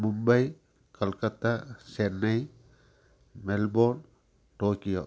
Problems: constant background noise